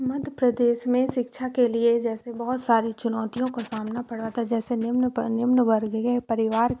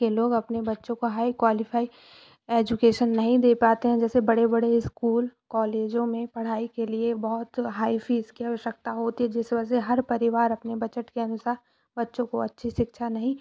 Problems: none marked